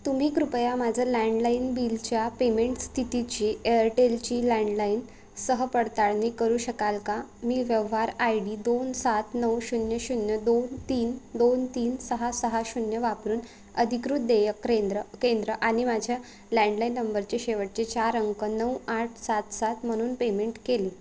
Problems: constant background noise